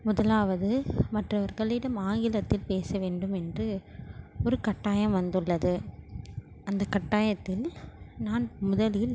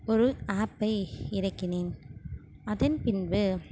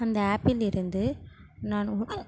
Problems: constant background noise